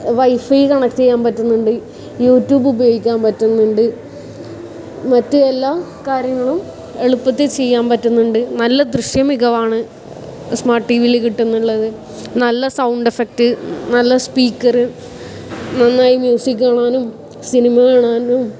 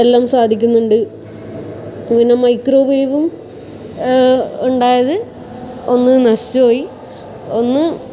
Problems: background sounds at intervals